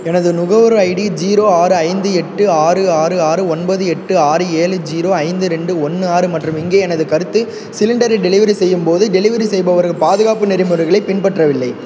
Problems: background sounds at intervals